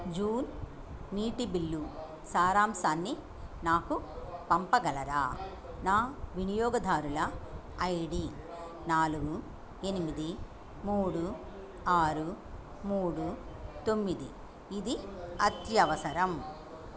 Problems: background sounds at intervals